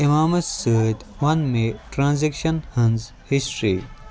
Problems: constant background noise, background conversations at intervals